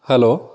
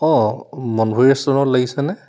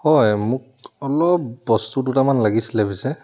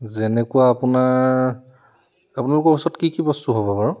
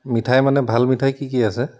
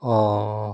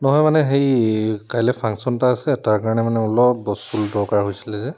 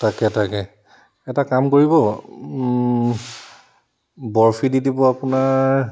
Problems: constant background noise